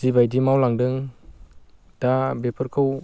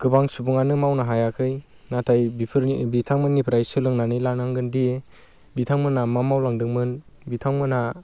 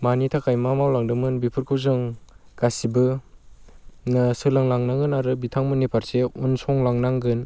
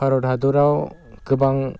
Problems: constant background noise